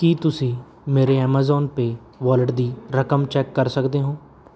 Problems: background sounds at intervals